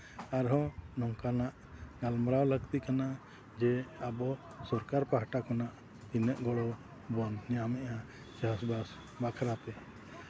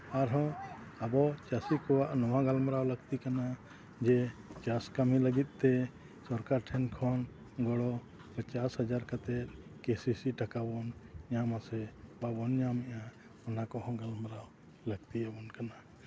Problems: background sounds at intervals